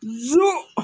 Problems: constant background noise, low volume